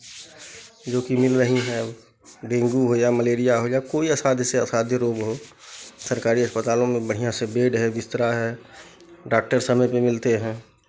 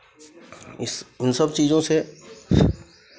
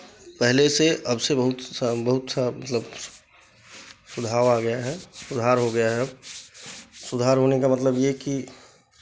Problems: constant background noise, background conversations at intervals